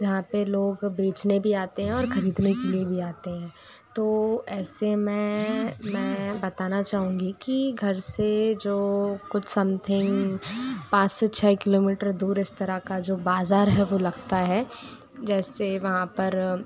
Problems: background sounds at intervals